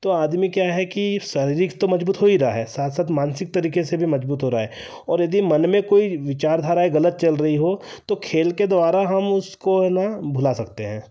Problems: none marked